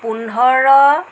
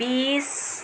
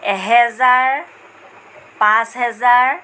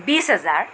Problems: constant background noise